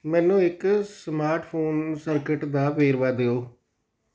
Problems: none marked